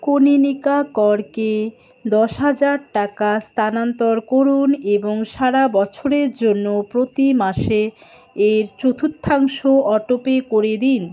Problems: constant background noise, continuous background conversations